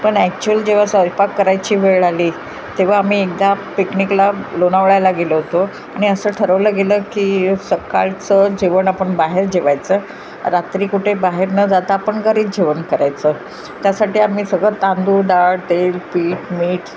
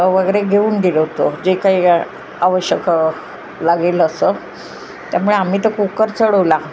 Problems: background sounds at intervals